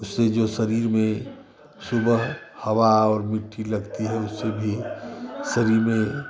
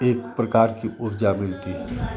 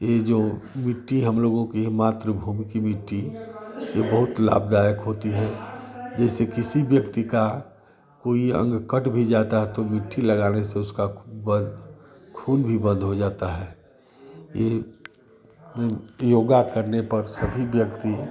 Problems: constant background noise